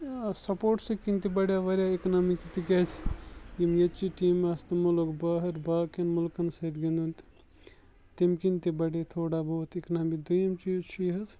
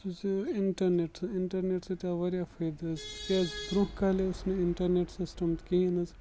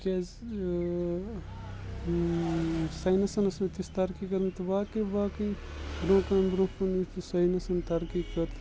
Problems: background sounds at intervals, low volume